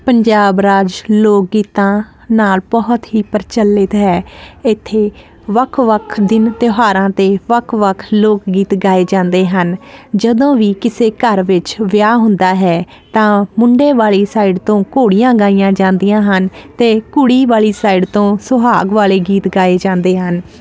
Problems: constant background noise